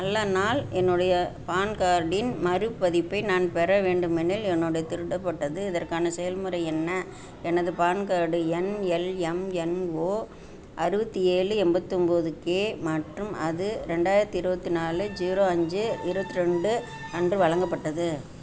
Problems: constant background noise